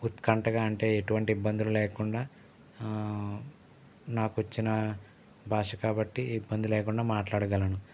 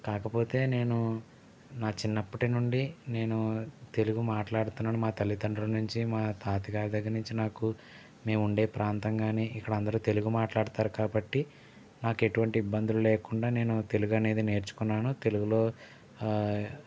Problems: constant background noise